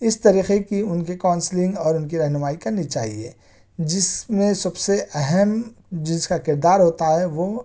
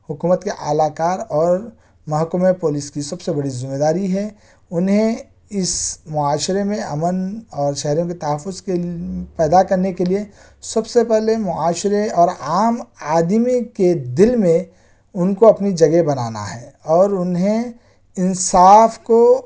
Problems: background sounds at intervals